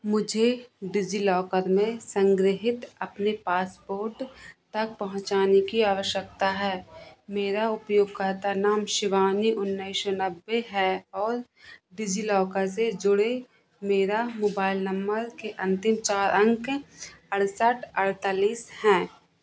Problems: background sounds at intervals